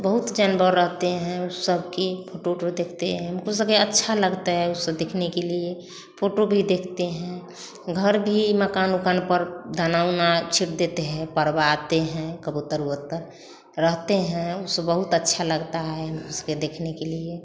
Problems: none marked